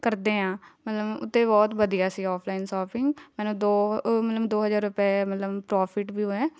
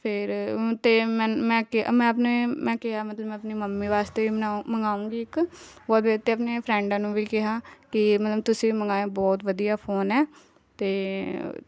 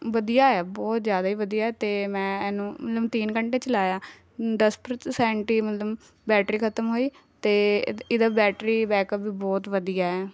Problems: background sounds at intervals, background conversations at intervals